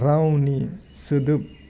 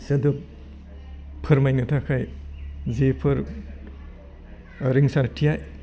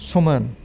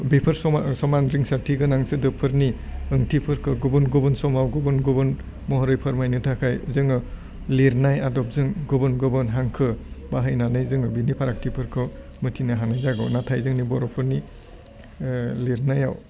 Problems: constant background noise